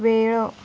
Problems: constant background noise